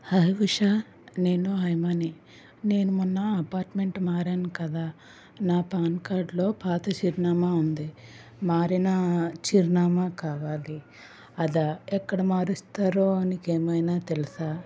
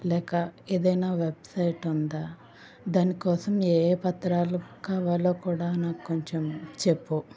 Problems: constant background noise